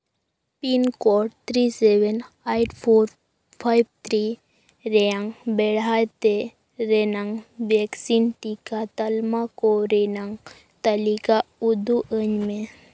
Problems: background sounds at intervals